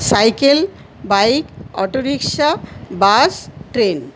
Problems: constant background noise